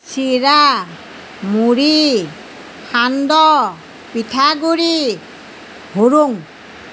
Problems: background sounds at intervals